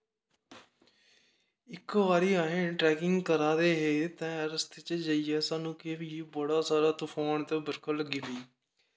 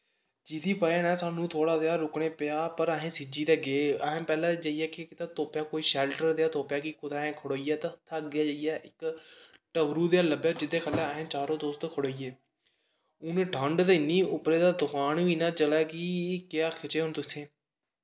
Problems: background sounds at intervals, echo